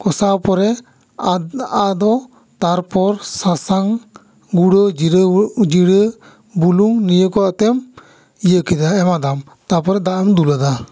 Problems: echo